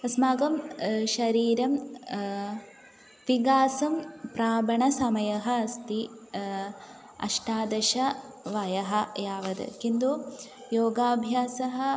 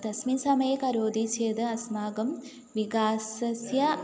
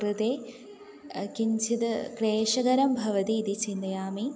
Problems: none marked